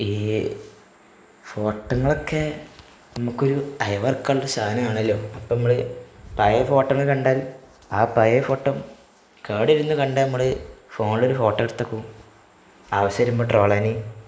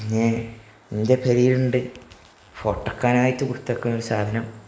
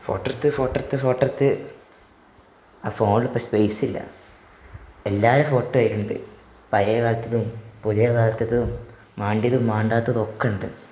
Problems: none marked